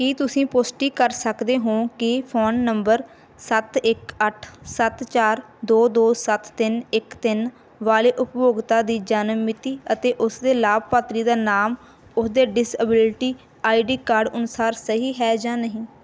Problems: none marked